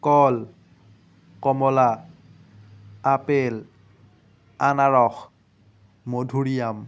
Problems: none marked